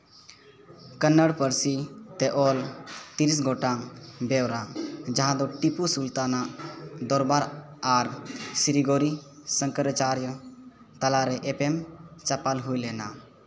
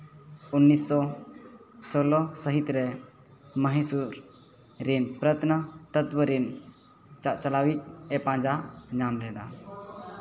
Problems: continuous background conversations